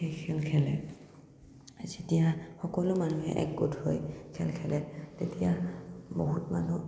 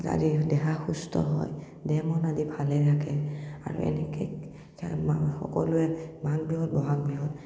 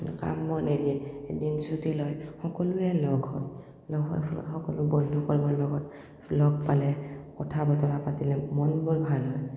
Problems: none marked